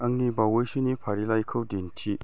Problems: none marked